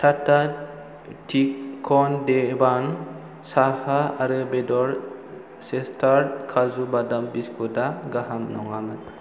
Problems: constant background noise